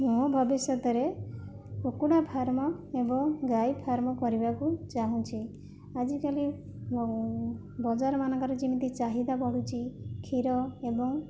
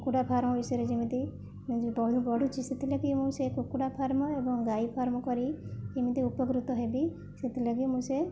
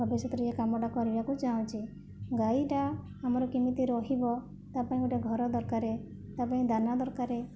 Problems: low volume